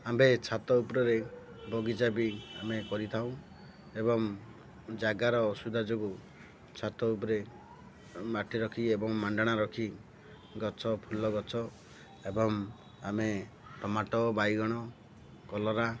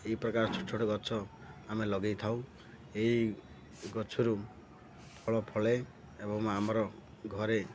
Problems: none marked